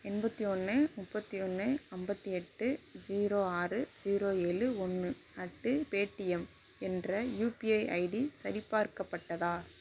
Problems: low volume